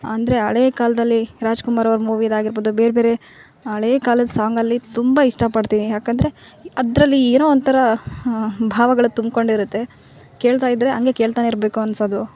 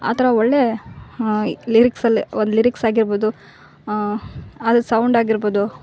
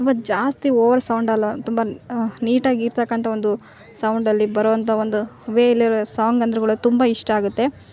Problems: background sounds at intervals